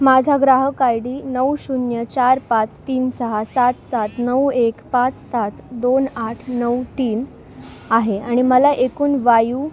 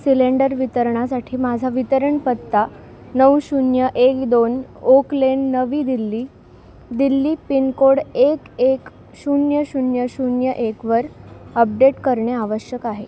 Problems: none marked